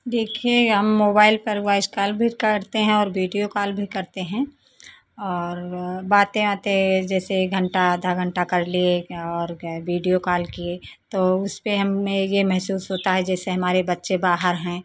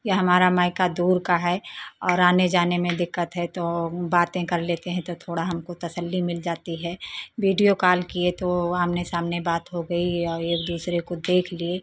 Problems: constant background noise